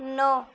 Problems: none marked